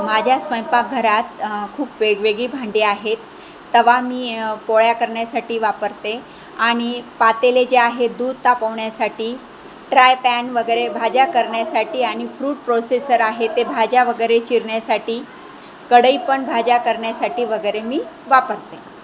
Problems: constant background noise, continuous background conversations